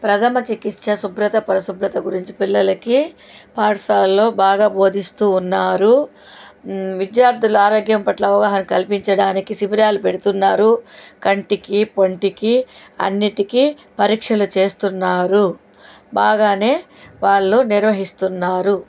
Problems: none marked